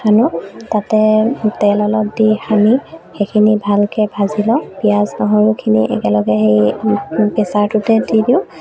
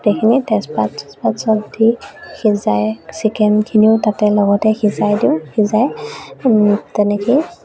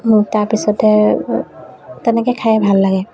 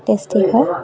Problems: background sounds at intervals